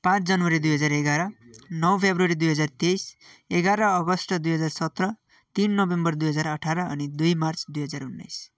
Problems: none marked